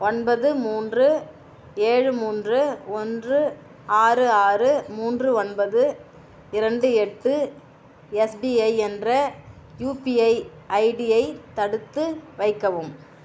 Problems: constant background noise